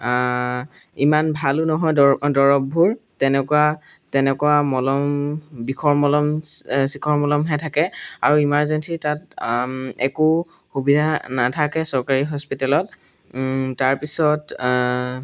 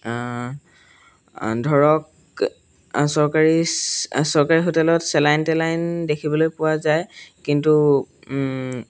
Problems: background sounds at intervals